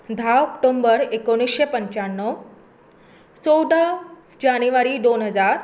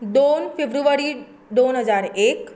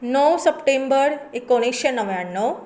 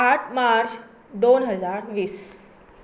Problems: constant background noise